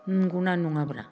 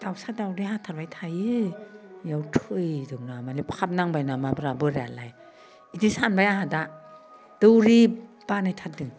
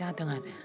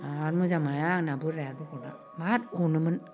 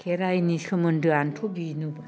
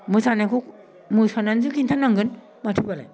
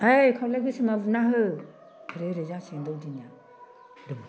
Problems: none marked